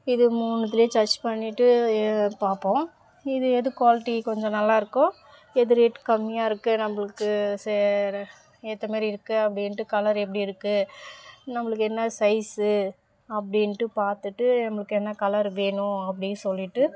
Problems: background sounds at intervals, background conversations at intervals